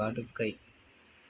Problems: none marked